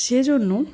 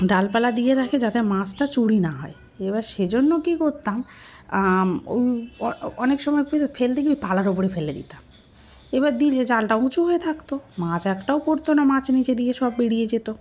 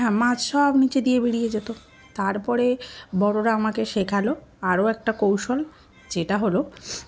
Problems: constant background noise, continuous background conversations